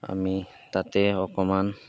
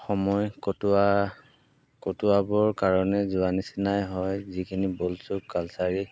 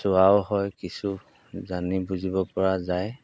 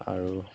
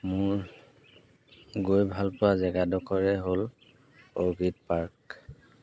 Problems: background sounds at intervals